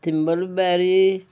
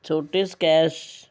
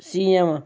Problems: none marked